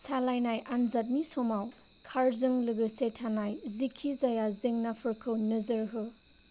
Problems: low volume